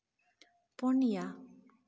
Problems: echo